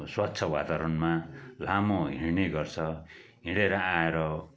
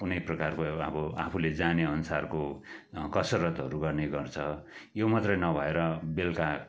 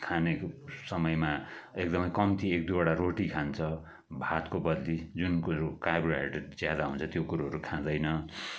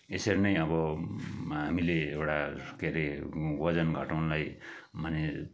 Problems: background sounds at intervals